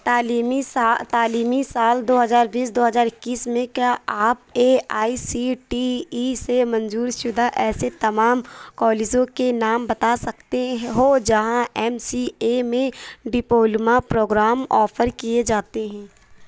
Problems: none marked